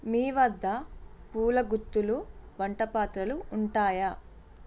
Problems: constant background noise